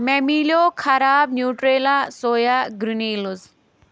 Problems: none marked